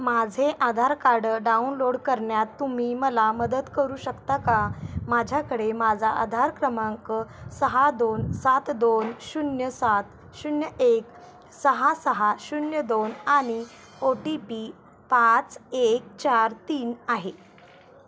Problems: constant background noise